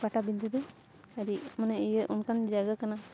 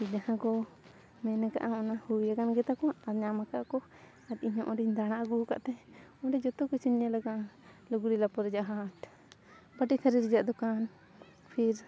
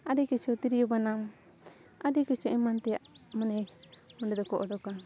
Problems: constant background noise